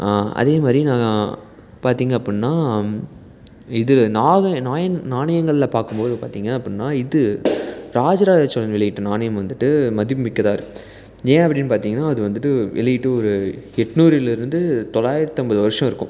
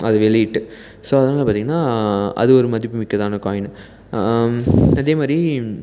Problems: none marked